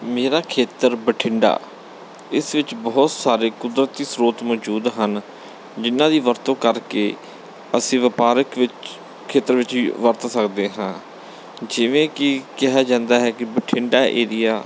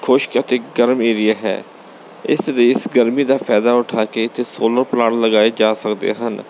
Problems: background sounds at intervals